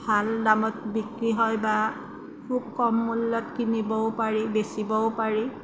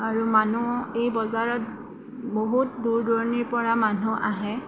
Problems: none marked